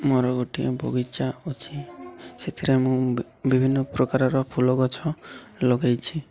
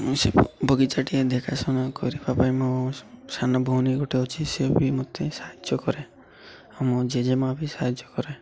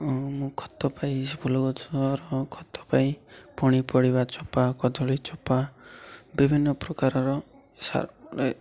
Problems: constant background noise, continuous background conversations